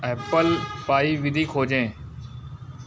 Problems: background sounds at intervals